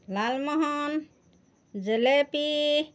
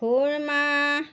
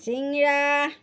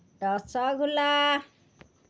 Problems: background sounds at intervals